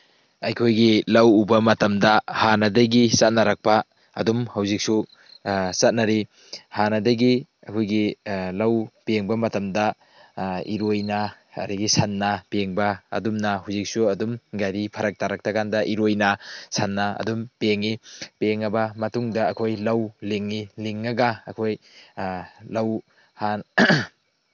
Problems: background sounds at intervals